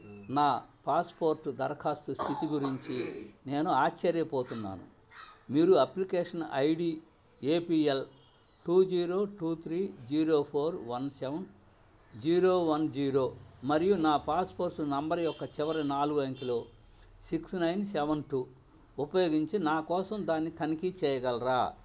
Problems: background sounds at intervals, low volume